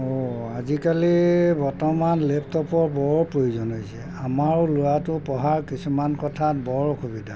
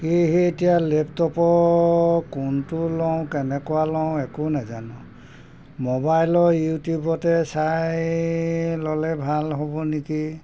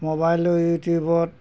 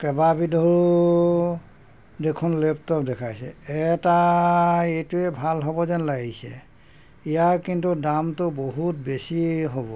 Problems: background sounds at intervals